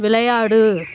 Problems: background sounds at intervals